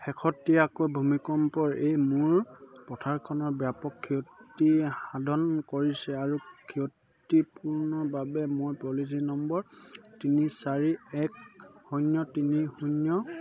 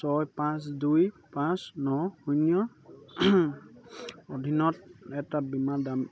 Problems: none marked